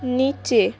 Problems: constant background noise